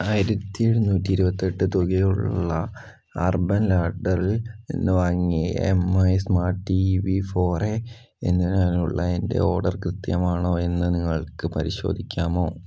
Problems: none marked